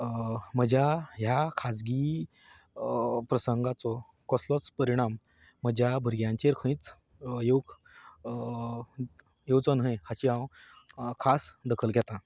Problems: none marked